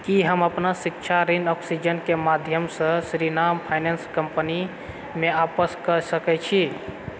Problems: background sounds at intervals